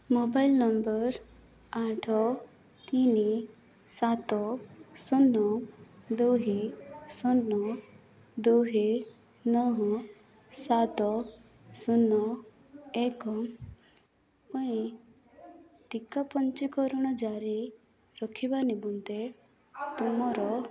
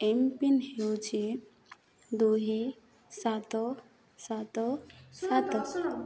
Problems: background sounds at intervals, background conversations at intervals